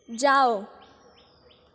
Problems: constant background noise, echo